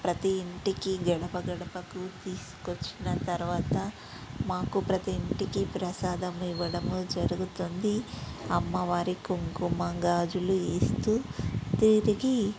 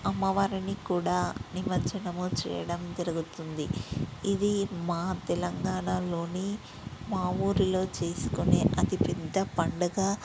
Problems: background sounds at intervals